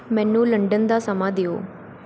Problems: background sounds at intervals